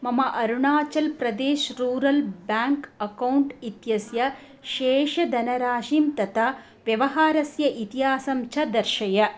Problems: none marked